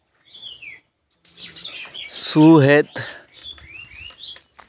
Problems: background sounds at intervals